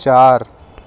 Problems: none marked